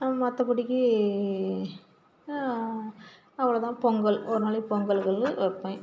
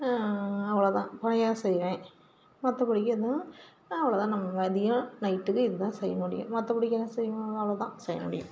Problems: constant background noise